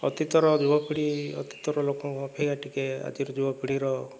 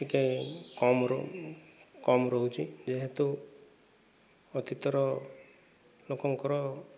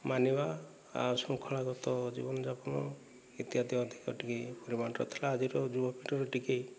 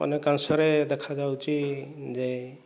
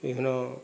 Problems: low volume